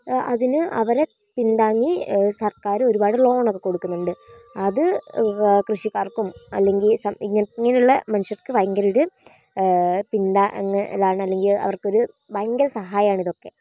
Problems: none marked